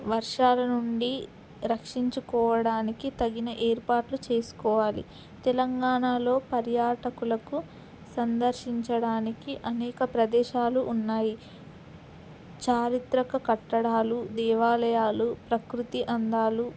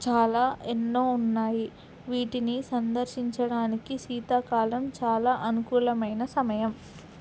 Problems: constant background noise